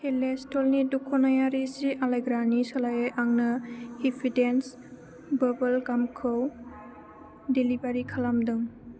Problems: low volume